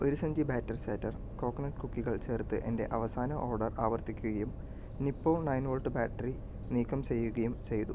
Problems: low volume